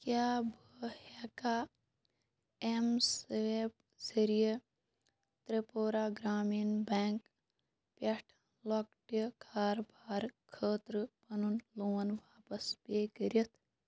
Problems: low volume